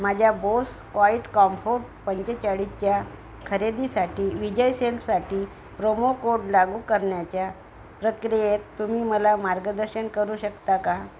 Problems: constant background noise